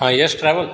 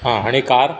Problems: background sounds at intervals